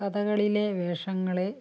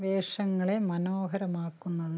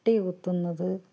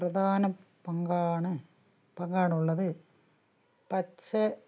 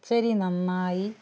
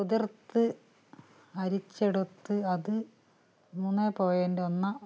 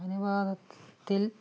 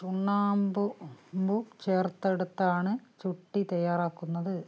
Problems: low volume